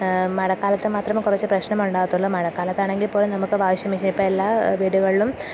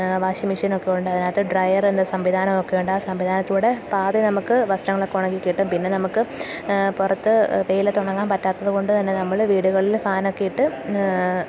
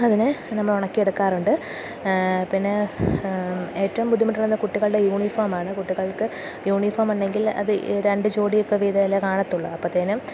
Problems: none marked